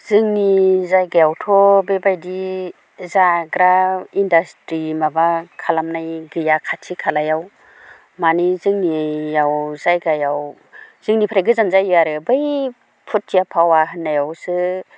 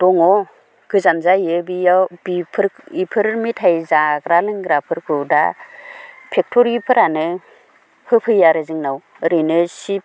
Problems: none marked